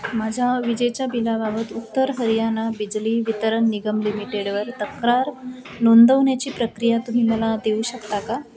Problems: constant background noise, continuous background conversations